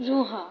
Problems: constant background noise